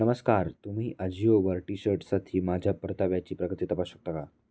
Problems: none marked